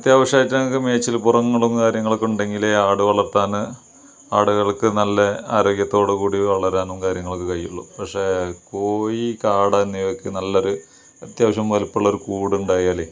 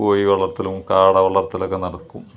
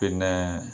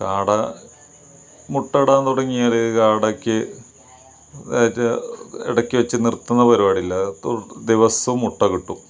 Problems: none marked